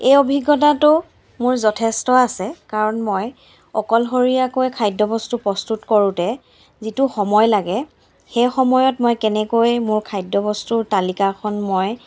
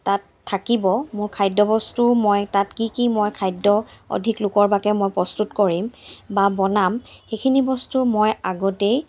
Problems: none marked